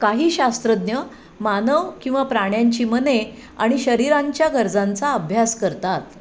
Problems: constant background noise, background conversations at intervals